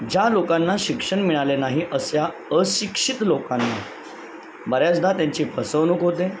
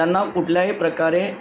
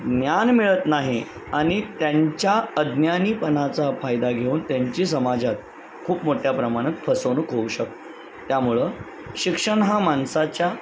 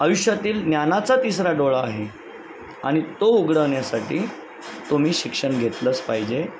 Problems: constant background noise, background conversations at intervals